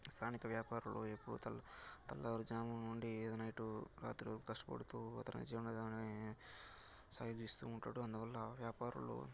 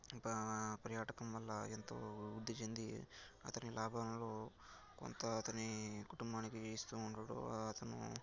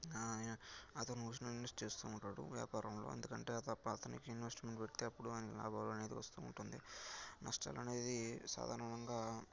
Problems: none marked